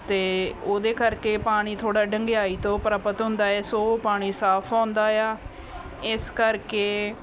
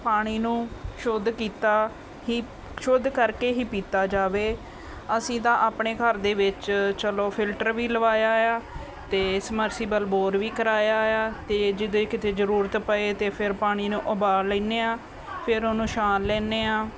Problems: constant background noise, background conversations at intervals